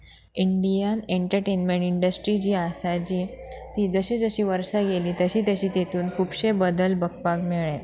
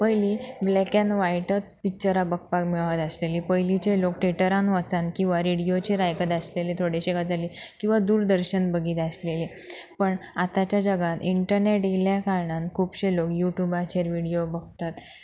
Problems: background sounds at intervals